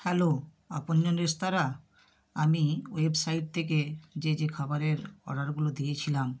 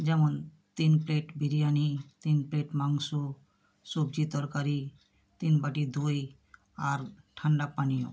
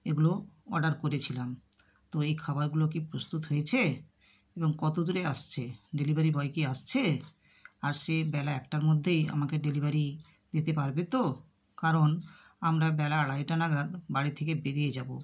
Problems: none marked